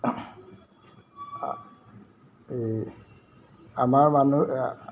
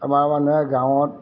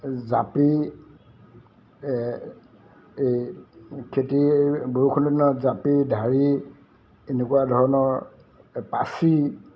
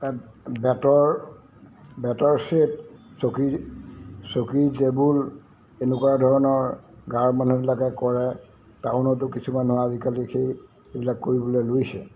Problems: none marked